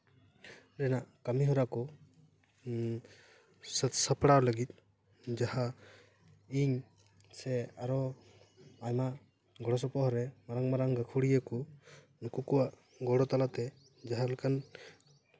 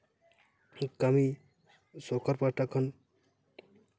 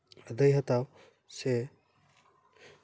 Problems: none marked